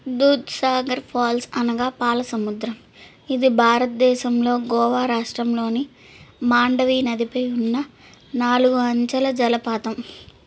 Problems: background sounds at intervals